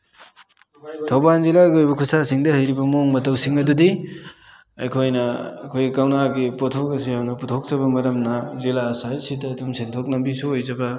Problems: background sounds at intervals